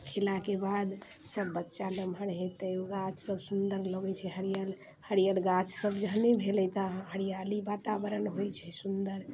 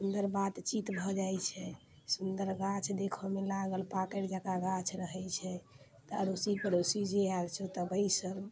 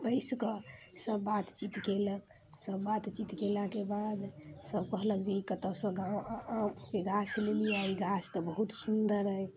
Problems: none marked